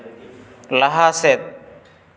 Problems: echo